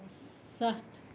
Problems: constant background noise